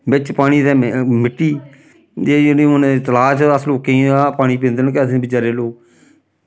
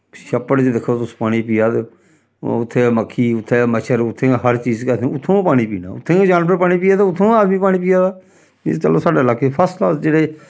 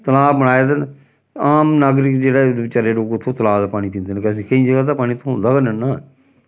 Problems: none marked